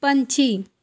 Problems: background sounds at intervals